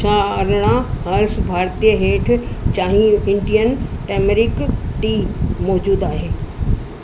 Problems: constant background noise, echo